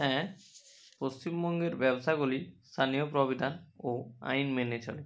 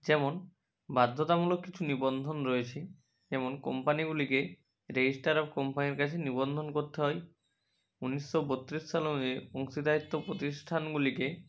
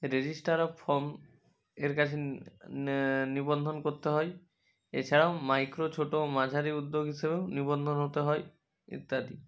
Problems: constant background noise, background conversations at intervals